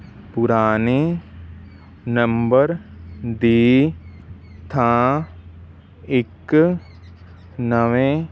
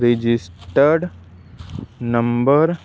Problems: constant background noise, background conversations at intervals